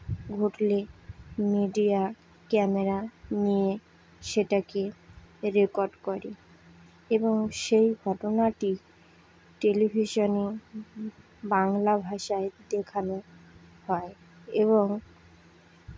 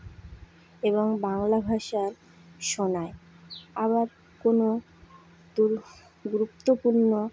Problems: none marked